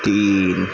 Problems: constant background noise, low volume